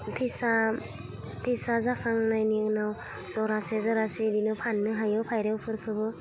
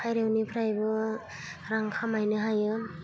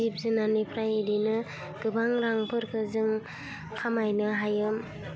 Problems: low volume